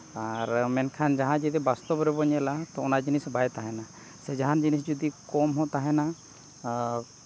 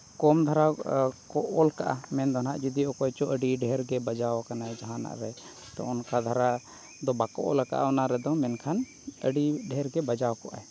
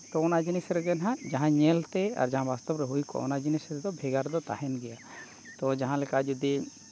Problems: background sounds at intervals